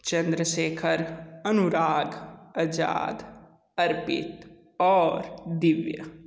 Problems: echo